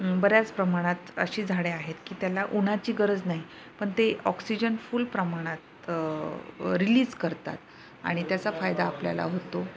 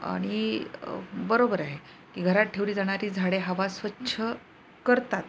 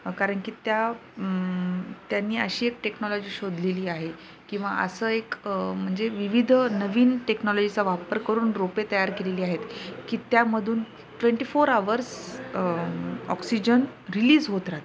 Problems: constant background noise, background conversations at intervals